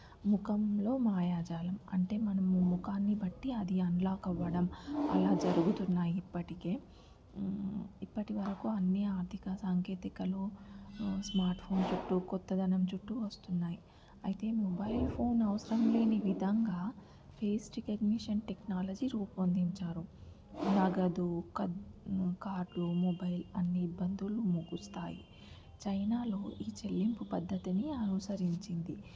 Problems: background sounds at intervals, low volume